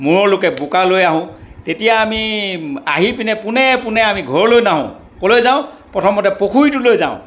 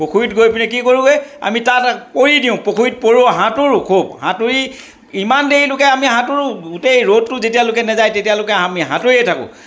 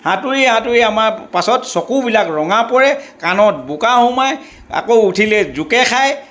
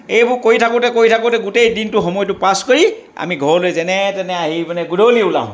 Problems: background conversations at intervals